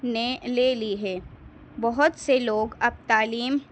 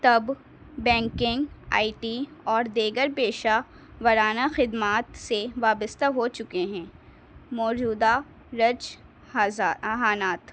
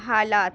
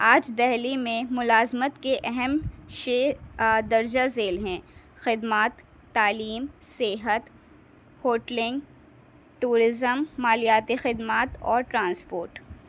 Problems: background sounds at intervals